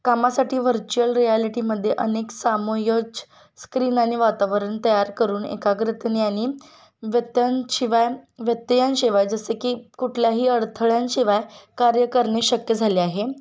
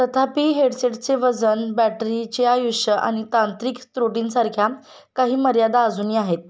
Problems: constant background noise, background conversations at intervals